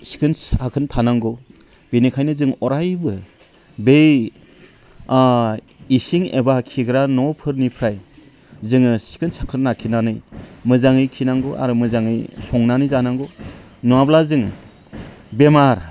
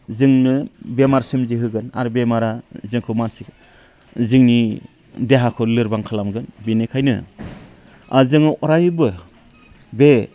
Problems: low volume